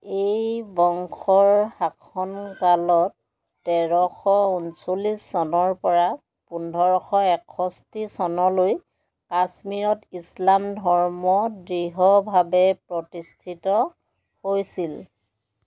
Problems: background sounds at intervals